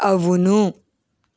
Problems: none marked